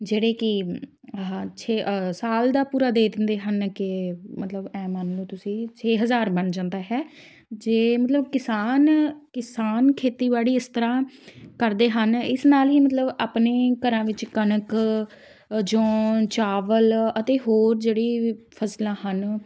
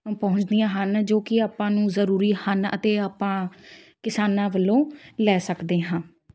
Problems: none marked